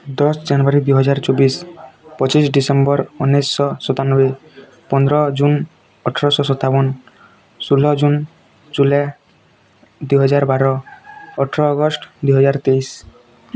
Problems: constant background noise, continuous background conversations